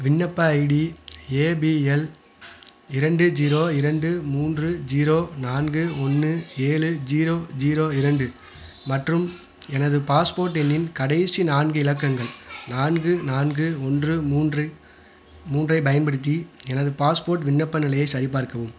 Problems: continuous background conversations